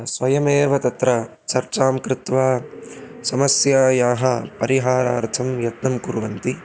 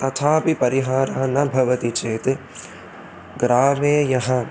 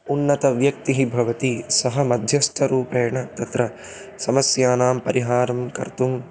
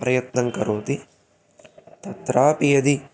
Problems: constant background noise